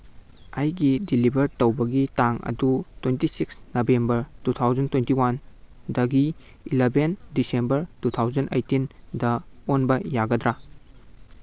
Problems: background sounds at intervals